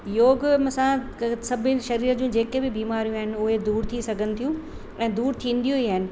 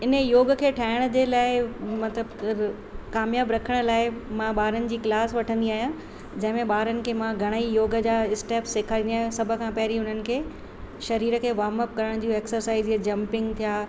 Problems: constant background noise, echo